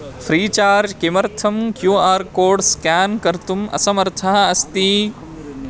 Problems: constant background noise, background conversations at intervals